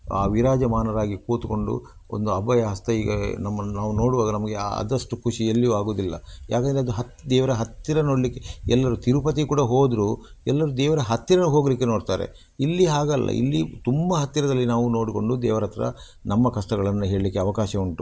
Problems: none marked